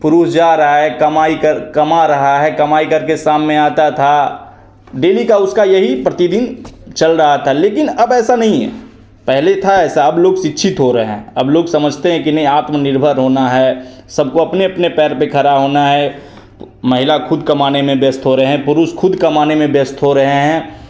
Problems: constant background noise, echo